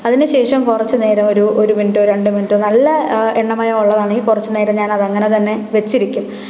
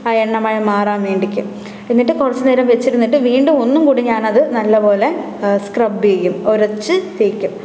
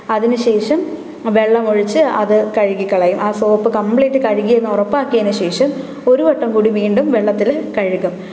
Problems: background sounds at intervals